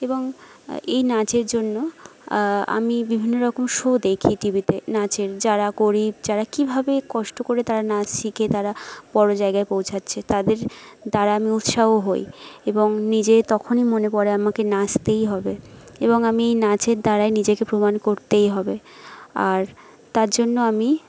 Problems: background sounds at intervals